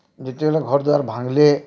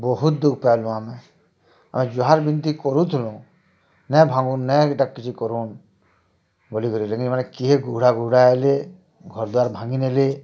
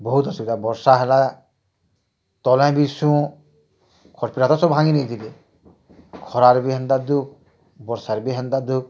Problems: none marked